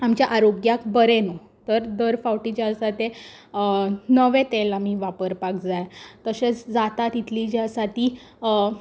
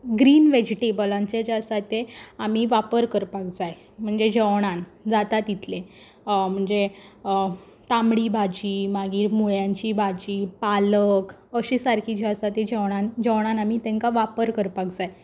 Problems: constant background noise